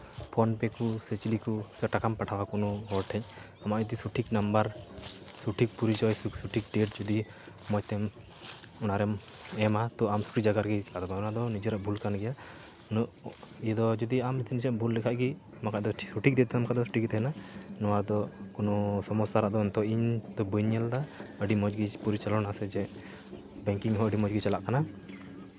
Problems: background sounds at intervals